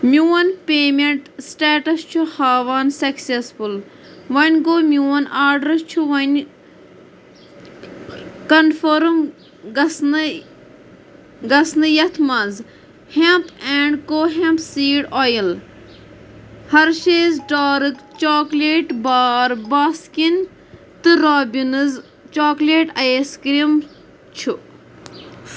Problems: constant background noise